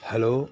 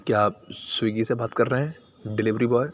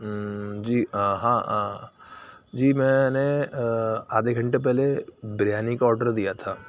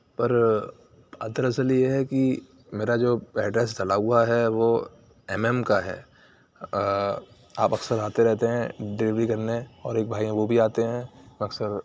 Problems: low volume